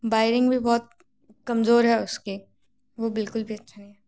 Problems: constant background noise